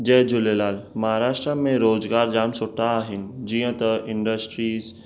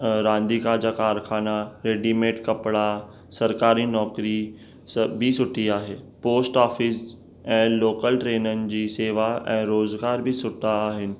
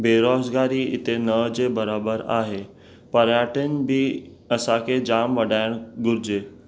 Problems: none marked